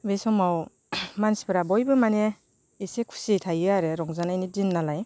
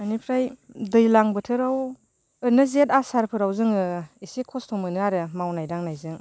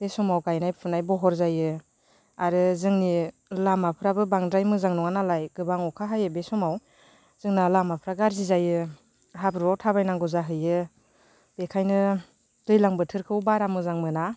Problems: none marked